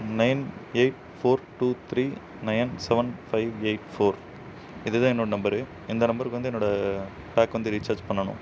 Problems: constant background noise